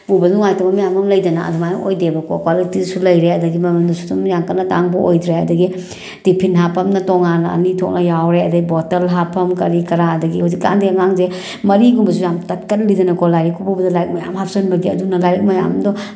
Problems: none marked